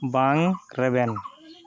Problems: constant background noise